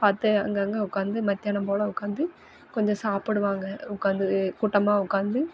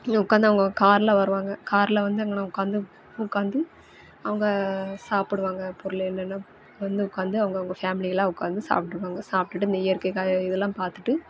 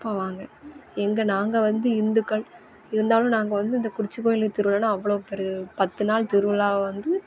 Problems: background sounds at intervals